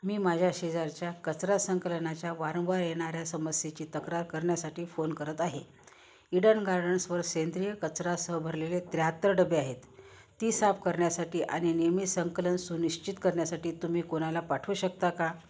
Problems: none marked